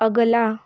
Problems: none marked